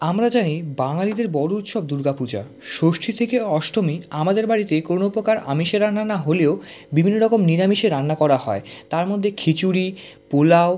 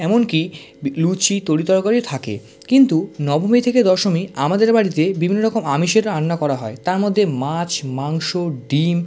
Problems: none marked